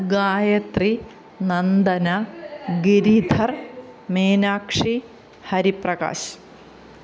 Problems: none marked